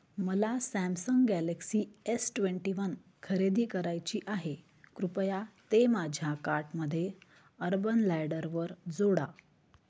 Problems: none marked